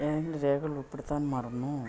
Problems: background sounds at intervals, low volume